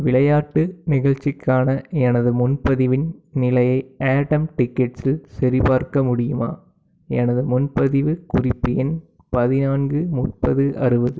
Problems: background sounds at intervals